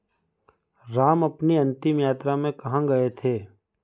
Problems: background sounds at intervals